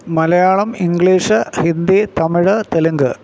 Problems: none marked